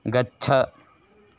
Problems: none marked